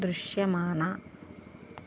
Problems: constant background noise